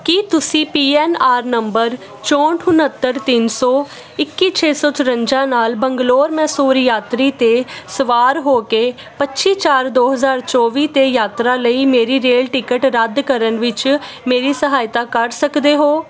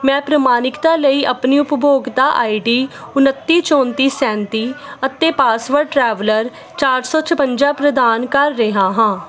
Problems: constant background noise